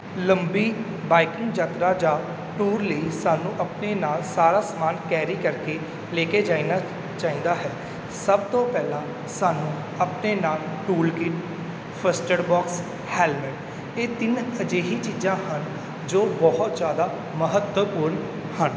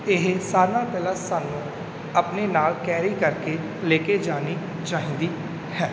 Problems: background sounds at intervals